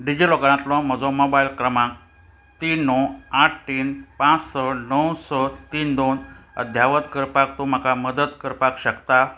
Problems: constant background noise